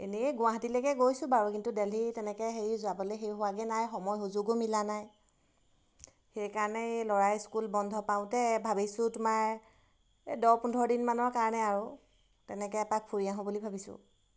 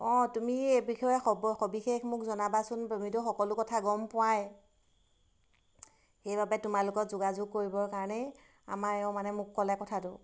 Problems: none marked